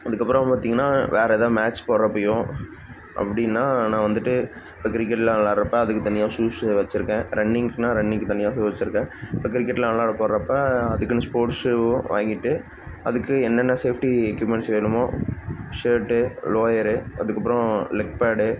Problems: constant background noise